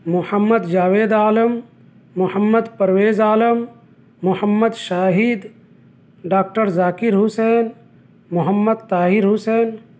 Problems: none marked